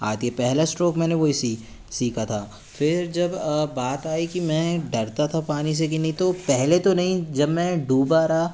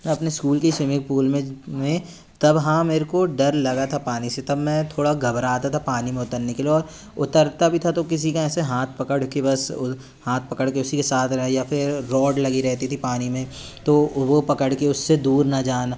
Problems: none marked